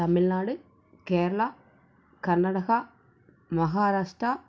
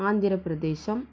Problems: low volume